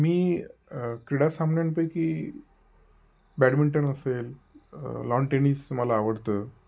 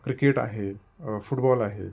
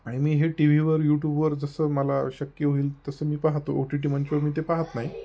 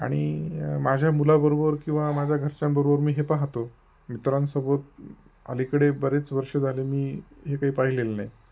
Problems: constant background noise